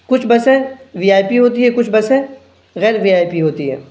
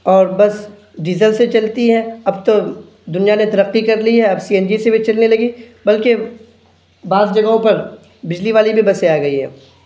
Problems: background sounds at intervals